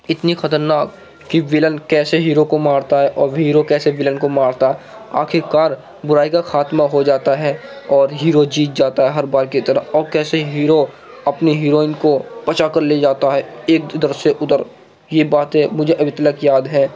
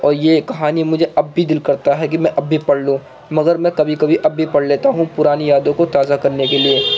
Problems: constant background noise